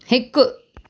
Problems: none marked